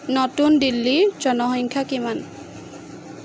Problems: none marked